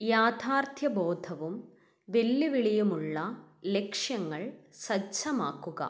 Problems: none marked